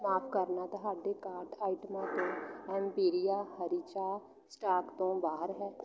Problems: background sounds at intervals, continuous background conversations